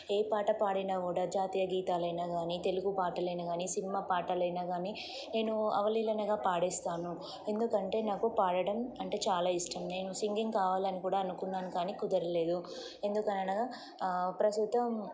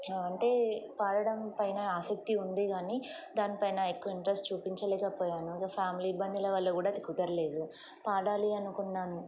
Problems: constant background noise